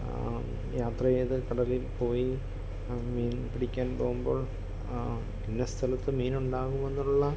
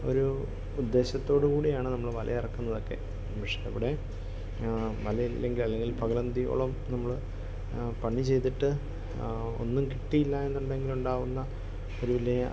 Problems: constant background noise, low volume